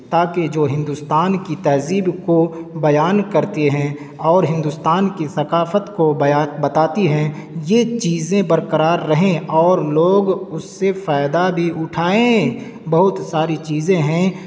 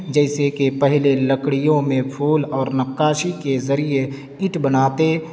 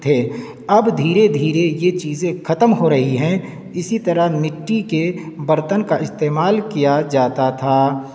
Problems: constant background noise